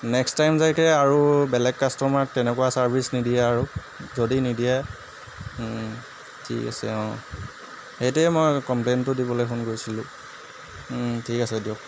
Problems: constant background noise